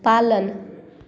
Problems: none marked